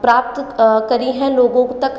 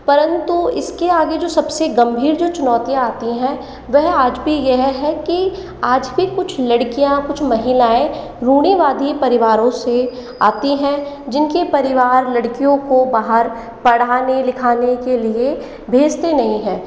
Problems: echo